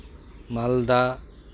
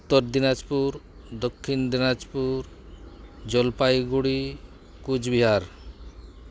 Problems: constant background noise